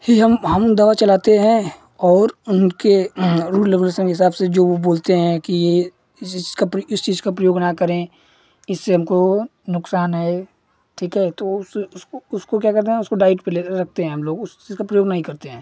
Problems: none marked